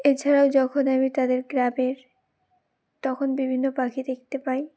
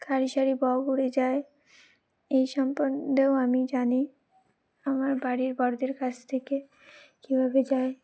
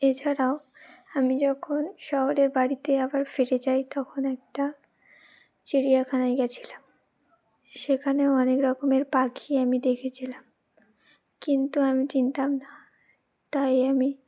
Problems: background sounds at intervals